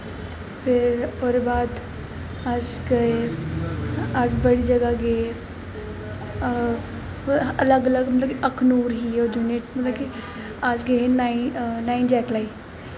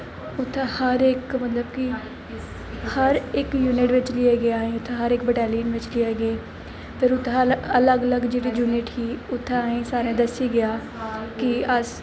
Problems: constant background noise, echo